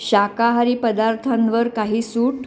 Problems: none marked